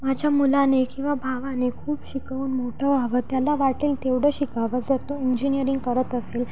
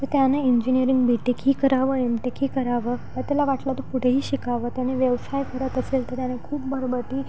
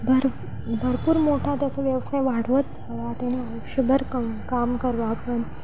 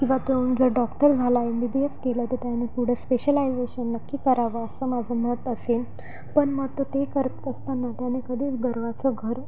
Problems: background sounds at intervals